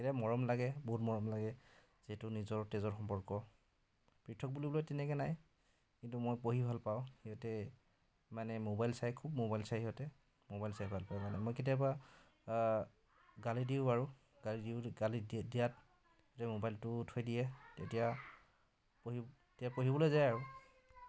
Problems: background conversations at intervals